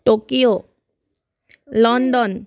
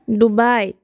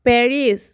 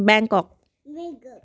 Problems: background conversations at intervals